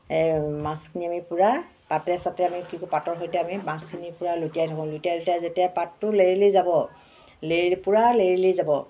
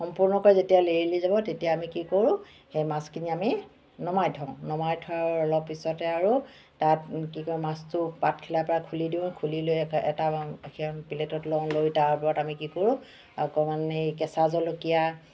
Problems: constant background noise, background conversations at intervals